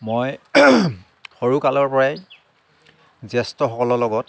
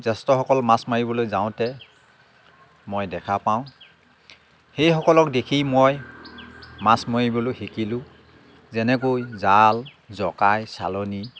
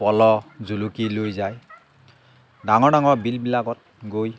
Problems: background sounds at intervals, background conversations at intervals